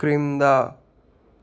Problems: constant background noise